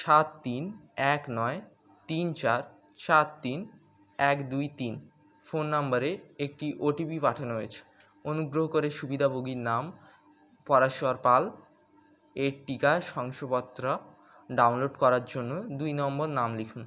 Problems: constant background noise